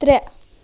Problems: constant background noise